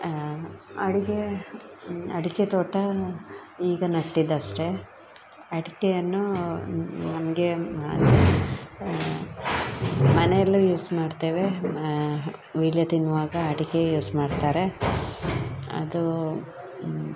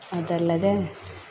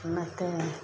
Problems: background sounds at intervals